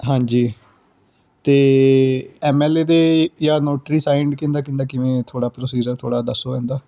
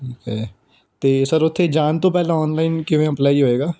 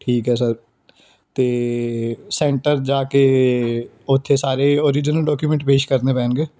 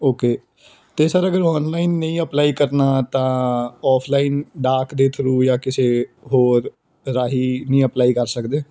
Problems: background conversations at intervals